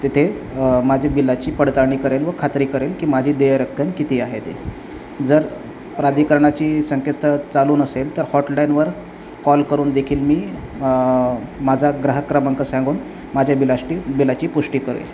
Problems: none marked